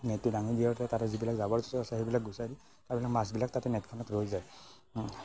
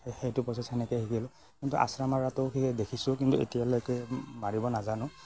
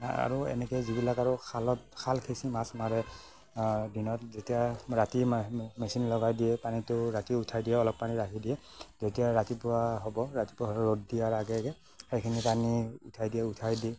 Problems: background sounds at intervals, low volume